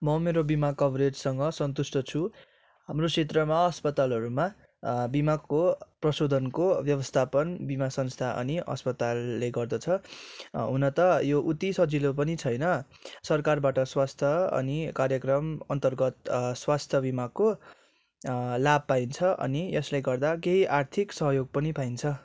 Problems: none marked